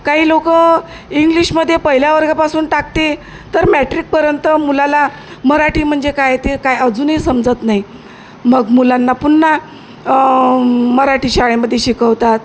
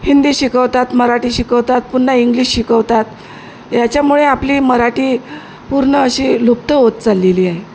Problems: constant background noise